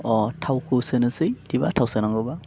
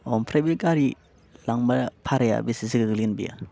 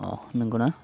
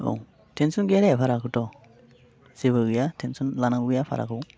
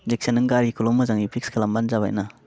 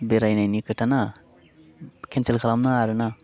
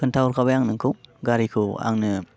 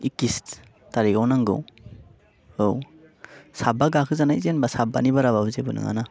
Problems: none marked